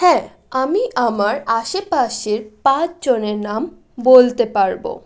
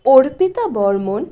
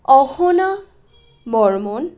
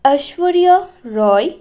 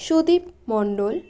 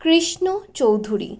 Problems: none marked